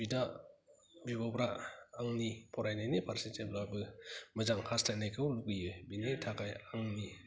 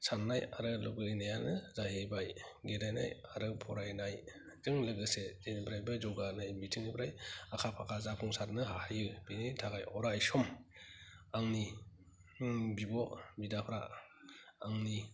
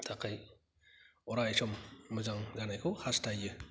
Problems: low volume